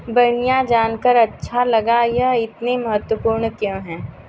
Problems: constant background noise